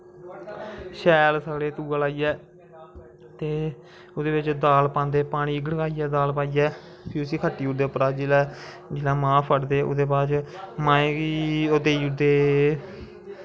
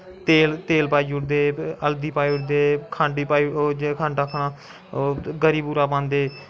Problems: constant background noise